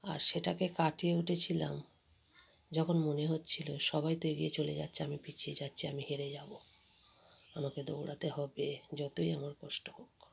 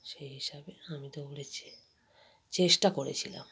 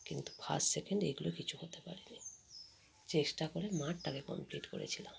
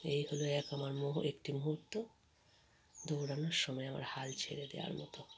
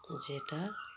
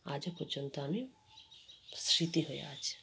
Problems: constant background noise, continuous background conversations